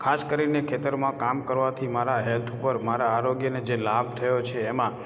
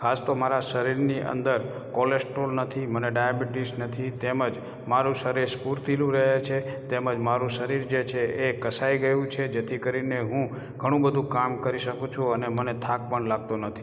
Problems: none marked